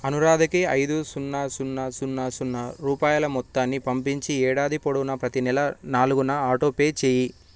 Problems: none marked